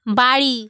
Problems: none marked